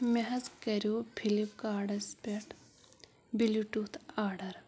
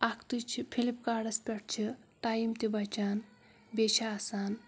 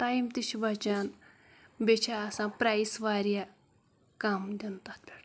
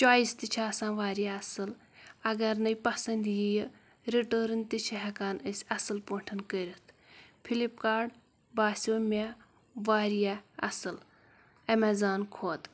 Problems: background sounds at intervals